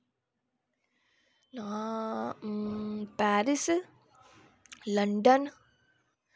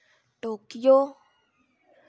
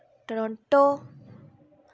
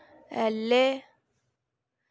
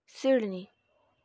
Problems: none marked